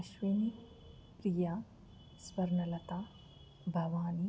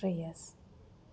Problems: constant background noise